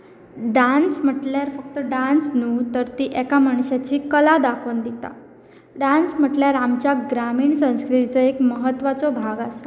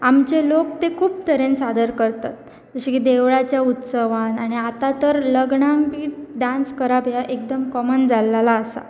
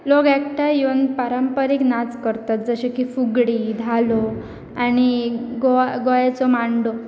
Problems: constant background noise